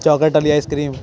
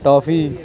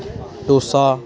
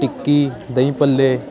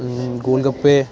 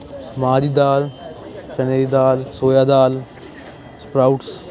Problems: constant background noise